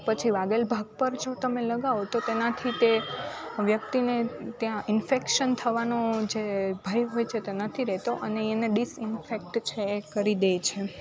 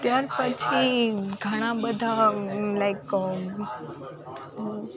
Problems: constant background noise